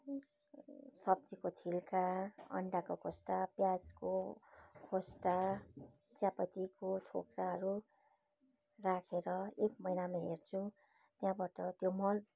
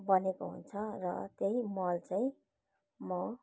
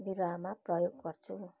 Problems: background sounds at intervals